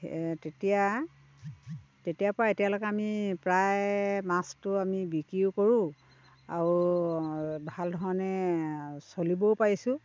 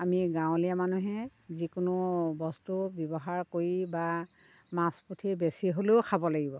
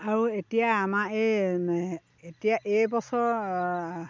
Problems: background sounds at intervals